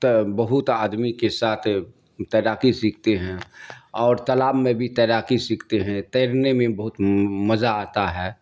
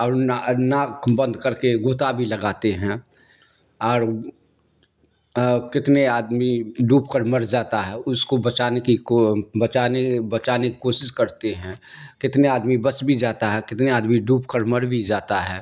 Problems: none marked